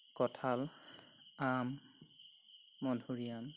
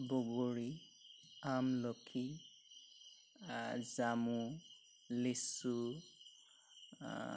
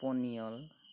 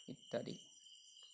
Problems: background sounds at intervals